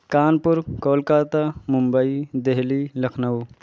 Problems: constant background noise